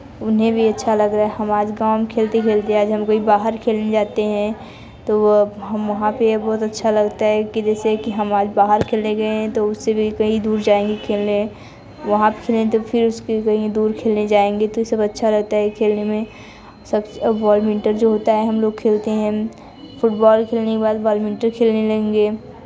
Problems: continuous background conversations